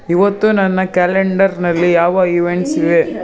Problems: constant background noise